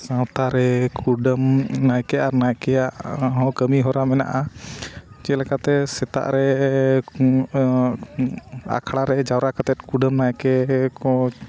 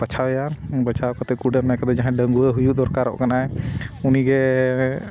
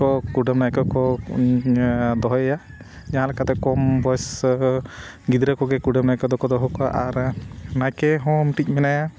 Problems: background sounds at intervals